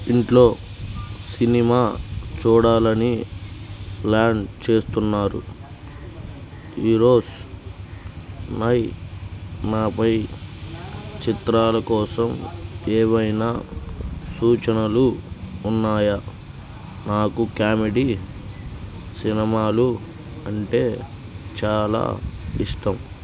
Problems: background conversations at intervals